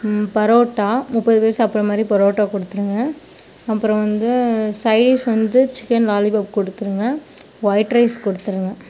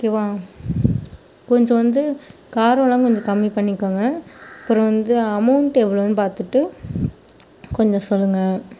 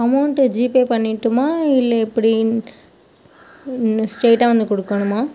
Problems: background sounds at intervals